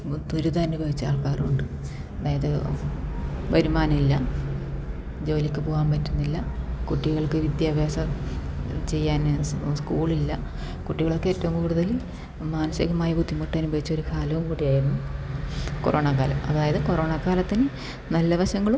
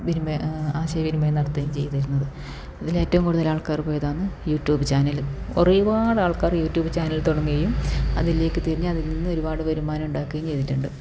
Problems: background sounds at intervals